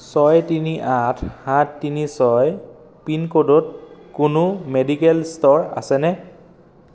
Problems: constant background noise